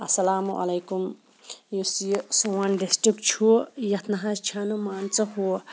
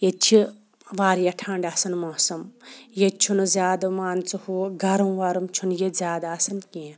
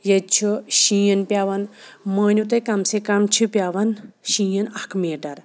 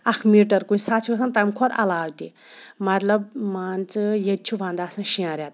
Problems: background sounds at intervals